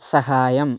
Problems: none marked